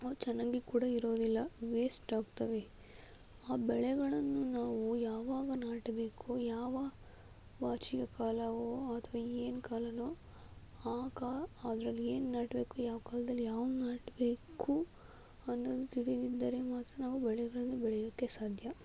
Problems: low volume